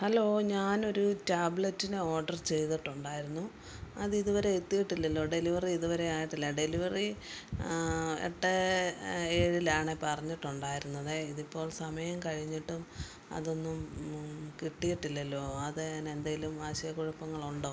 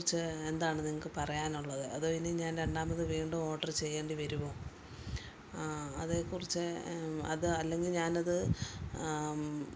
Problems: none marked